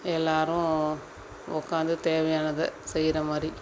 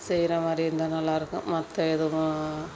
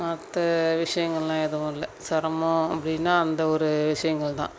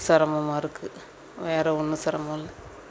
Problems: none marked